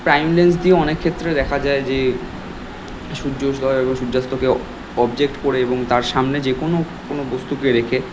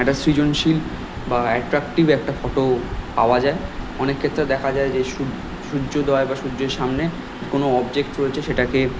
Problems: constant background noise, background conversations at intervals